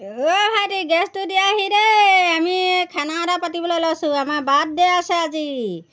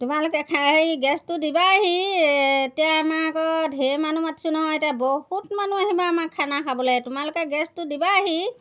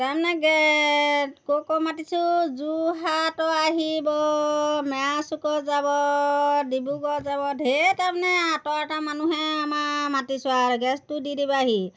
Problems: background sounds at intervals